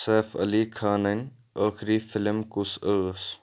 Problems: none marked